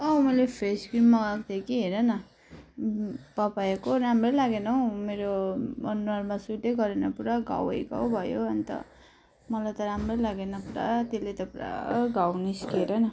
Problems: background sounds at intervals